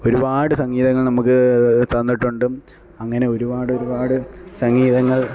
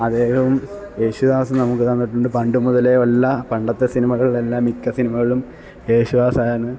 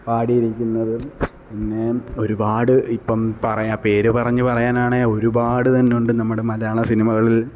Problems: none marked